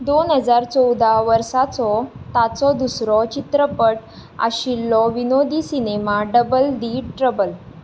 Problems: background sounds at intervals